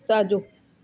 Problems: constant background noise, echo